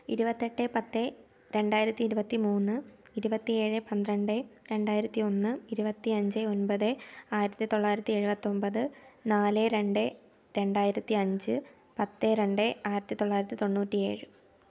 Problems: low volume